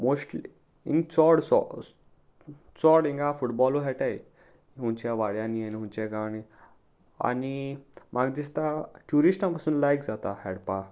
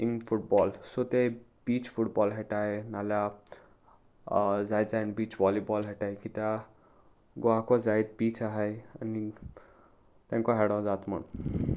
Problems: none marked